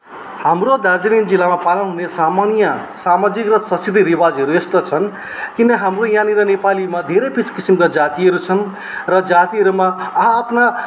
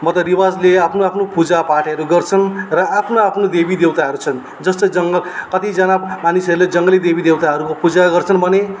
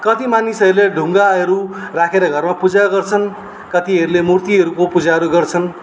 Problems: background sounds at intervals